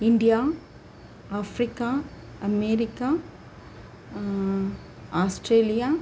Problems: constant background noise